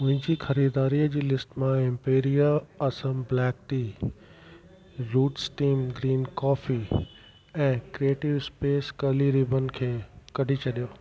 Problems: constant background noise